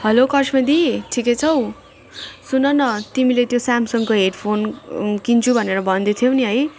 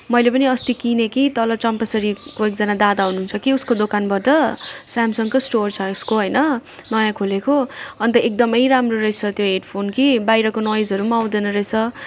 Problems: background sounds at intervals